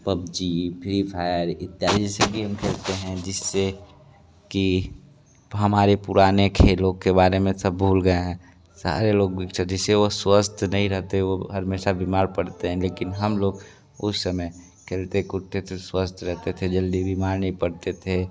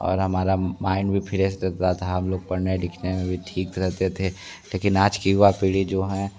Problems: constant background noise